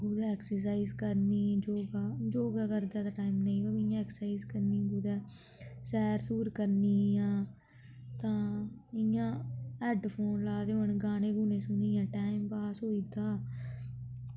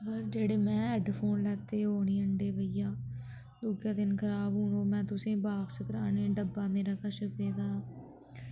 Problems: low volume